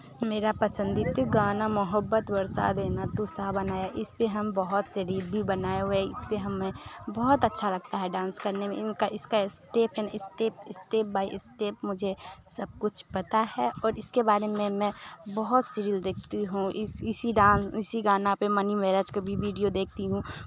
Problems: constant background noise